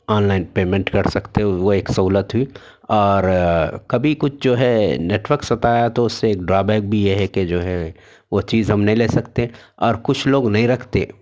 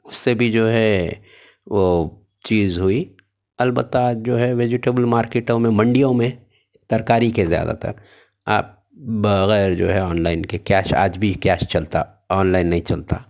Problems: none marked